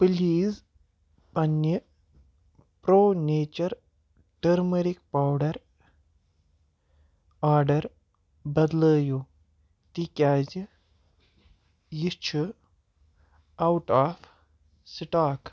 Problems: none marked